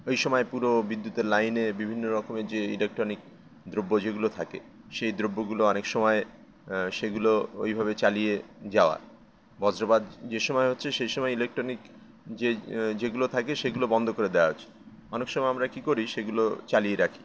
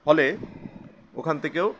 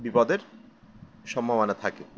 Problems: none marked